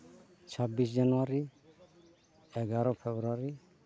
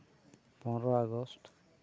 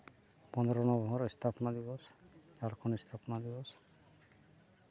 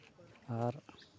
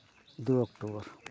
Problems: constant background noise